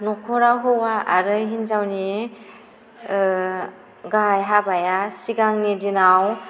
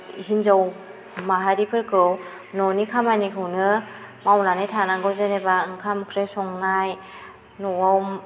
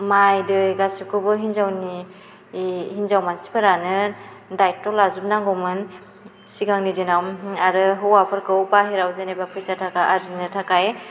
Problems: none marked